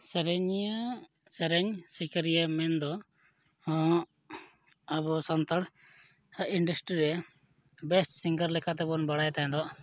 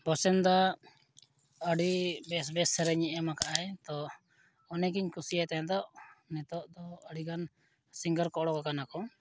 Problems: none marked